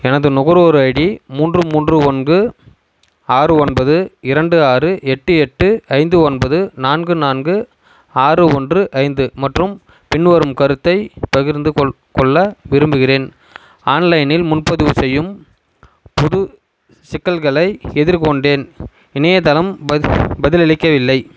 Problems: constant background noise